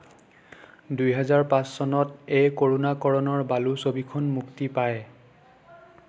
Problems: none marked